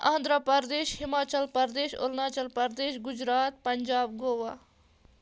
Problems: none marked